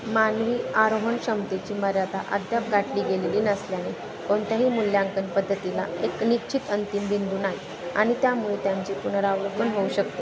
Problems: constant background noise, continuous background conversations